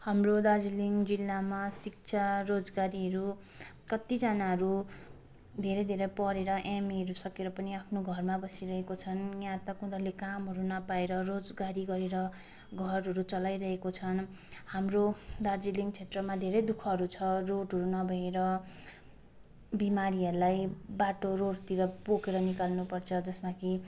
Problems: constant background noise